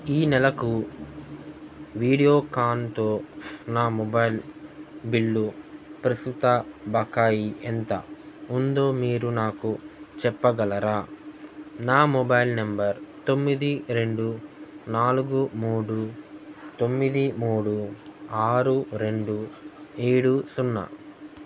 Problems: none marked